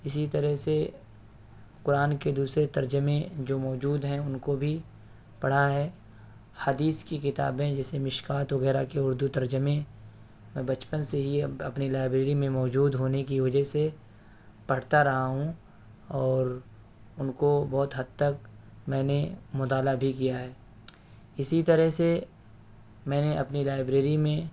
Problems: background sounds at intervals